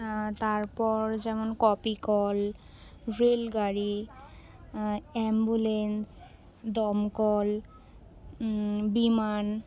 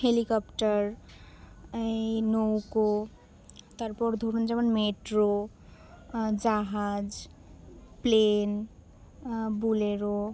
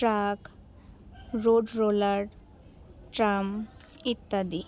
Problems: background sounds at intervals, background conversations at intervals